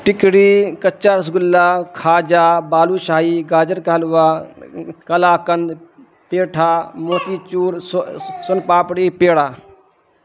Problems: constant background noise